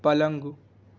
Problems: constant background noise